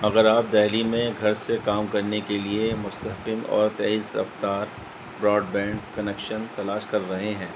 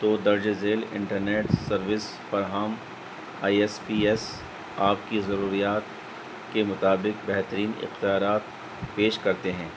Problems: constant background noise